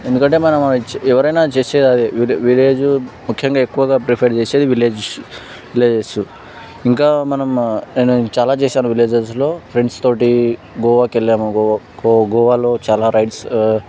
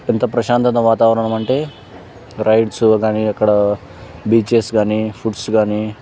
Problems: background sounds at intervals